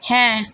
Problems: none marked